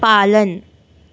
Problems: background sounds at intervals